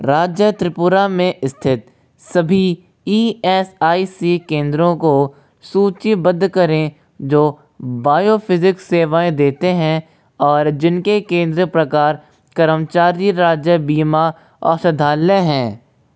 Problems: constant background noise, echo